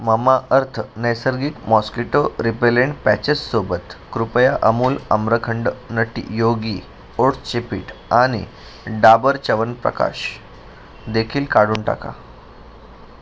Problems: constant background noise